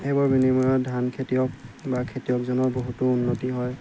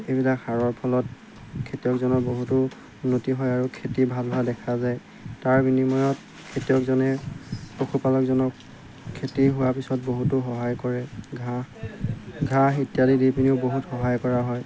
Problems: background sounds at intervals